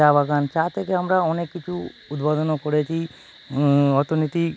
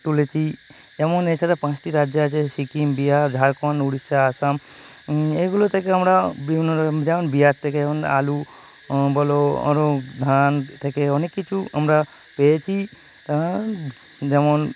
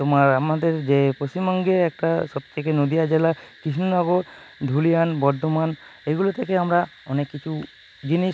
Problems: none marked